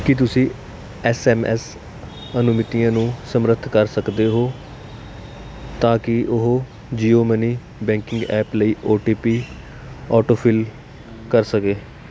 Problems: constant background noise